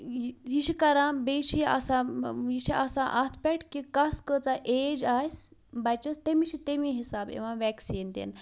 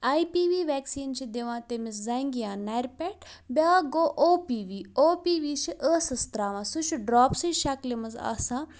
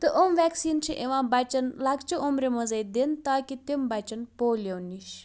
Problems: none marked